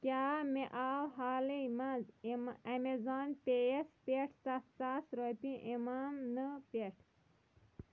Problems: low volume